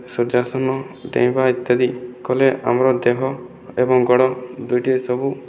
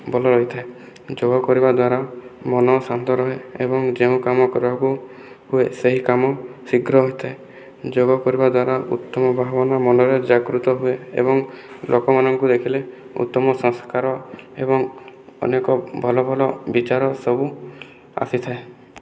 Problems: none marked